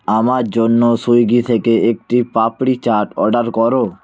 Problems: background sounds at intervals